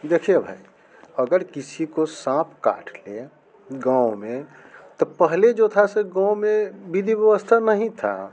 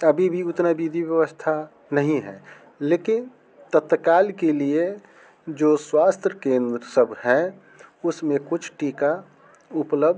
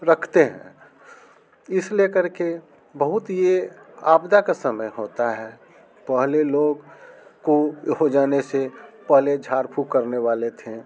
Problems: background sounds at intervals